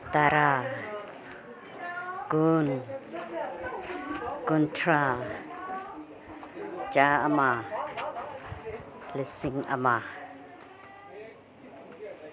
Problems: background conversations at intervals